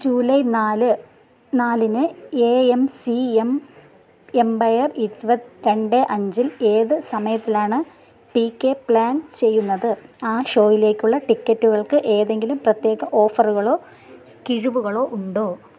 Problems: none marked